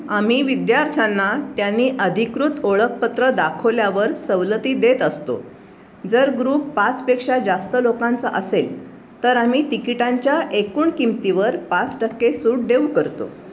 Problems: none marked